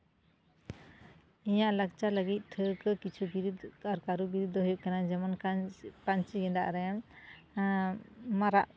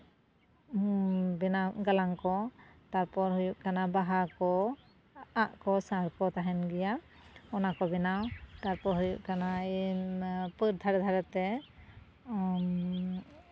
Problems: none marked